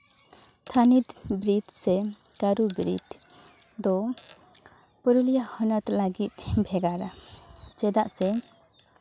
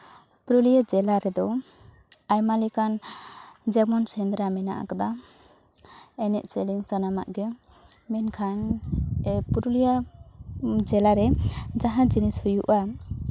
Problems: background sounds at intervals